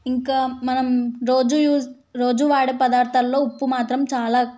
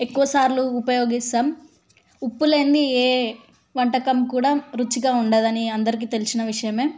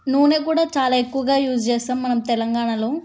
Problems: none marked